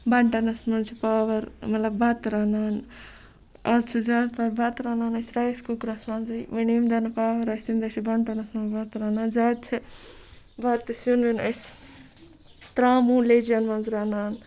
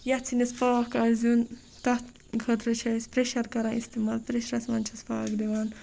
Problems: background sounds at intervals, background conversations at intervals